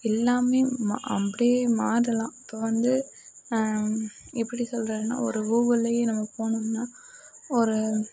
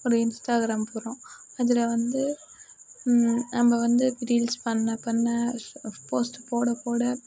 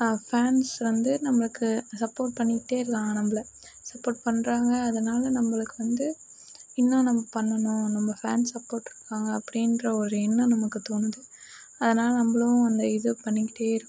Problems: background sounds at intervals